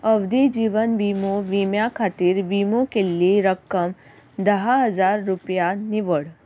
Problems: constant background noise